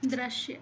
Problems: low volume